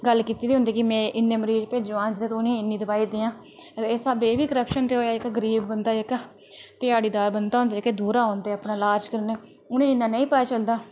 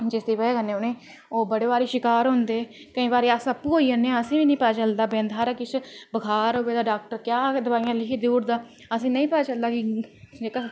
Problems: none marked